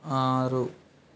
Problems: background sounds at intervals